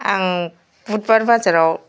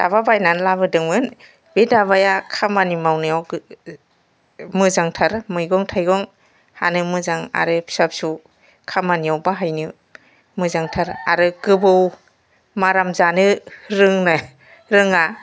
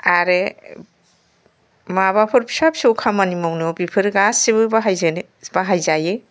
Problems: background sounds at intervals